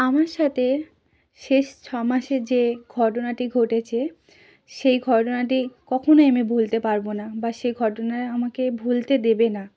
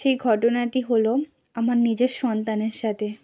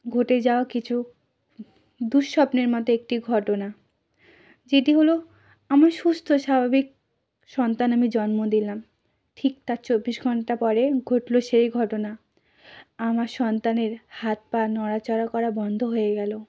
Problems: none marked